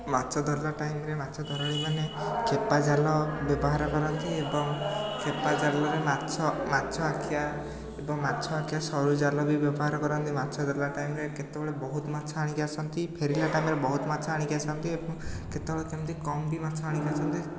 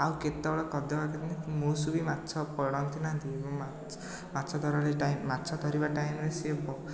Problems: none marked